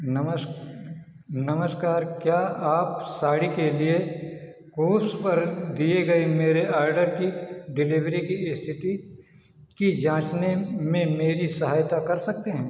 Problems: echo, low volume